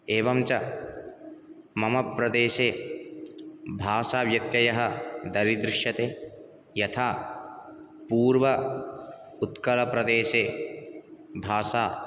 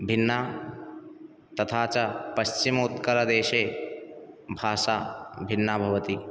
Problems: none marked